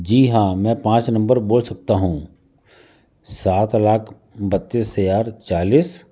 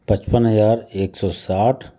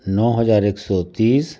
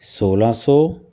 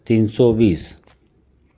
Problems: constant background noise, continuous background conversations